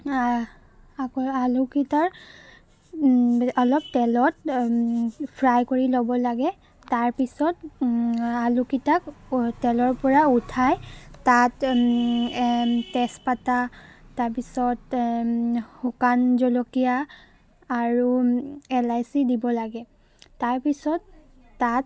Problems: constant background noise